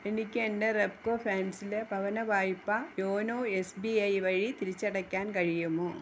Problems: constant background noise